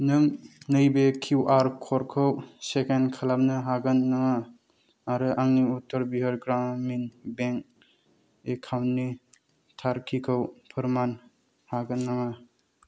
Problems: low volume